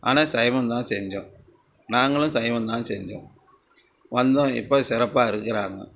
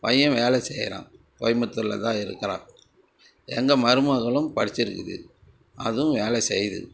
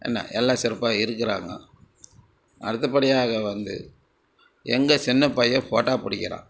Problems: background sounds at intervals, background conversations at intervals